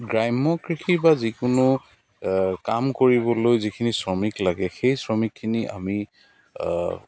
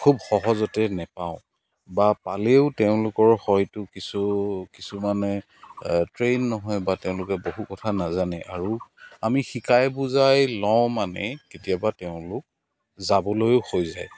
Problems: constant background noise, continuous background conversations